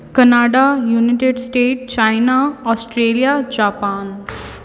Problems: none marked